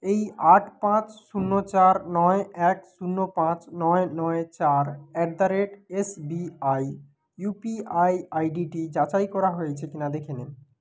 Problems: background conversations at intervals